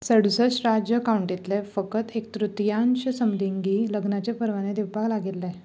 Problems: low volume